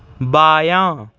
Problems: background sounds at intervals